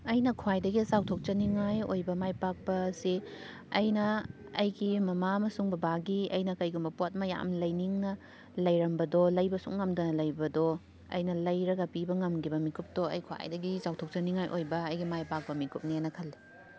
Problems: background sounds at intervals